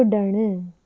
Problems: constant background noise